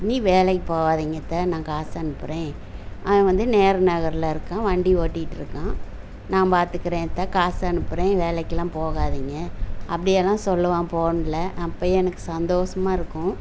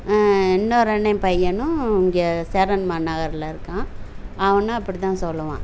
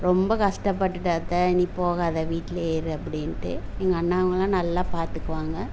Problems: none marked